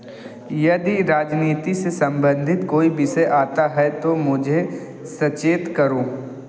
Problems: none marked